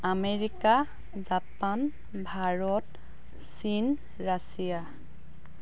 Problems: constant background noise